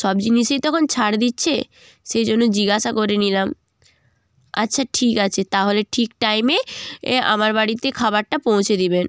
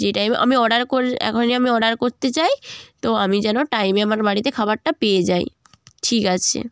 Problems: constant background noise